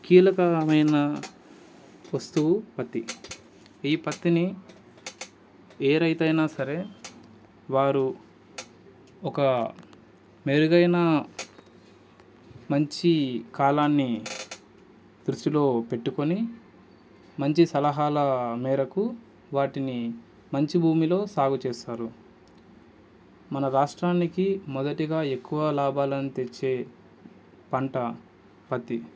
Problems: constant background noise